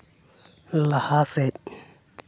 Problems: constant background noise